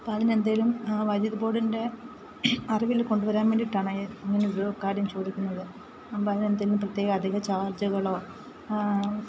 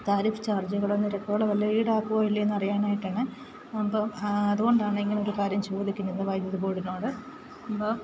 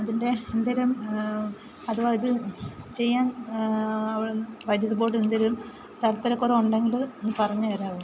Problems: constant background noise